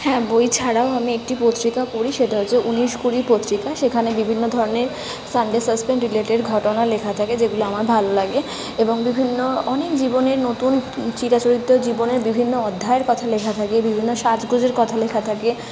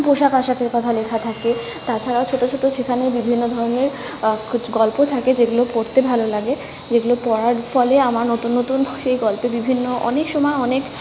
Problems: constant background noise, background conversations at intervals